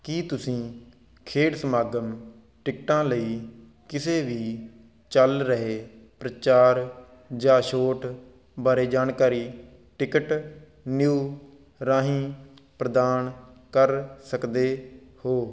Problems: background sounds at intervals